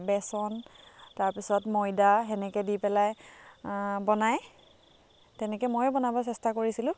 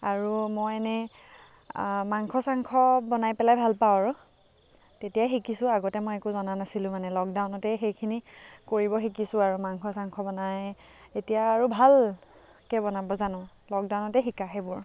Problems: none marked